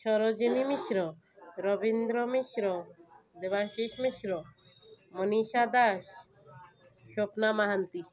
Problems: continuous background conversations